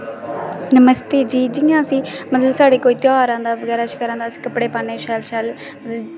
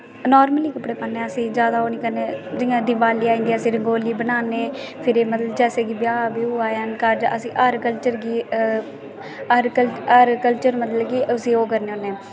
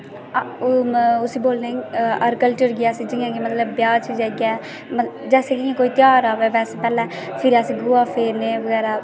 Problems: constant background noise, background conversations at intervals